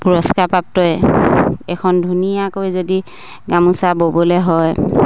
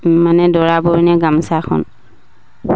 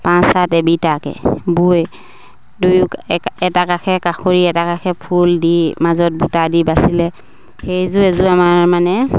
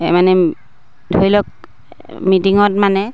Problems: none marked